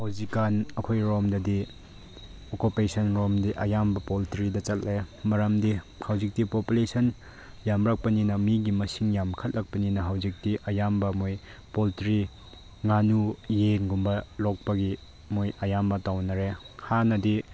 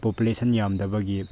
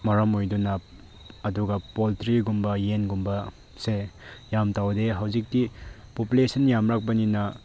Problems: none marked